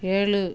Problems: none marked